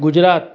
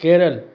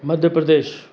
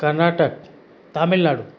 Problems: none marked